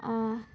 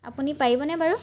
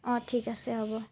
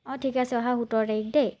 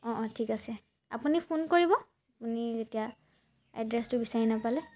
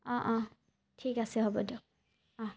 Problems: none marked